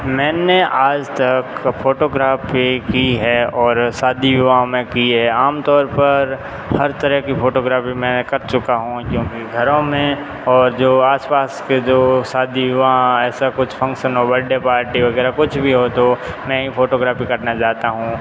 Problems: constant background noise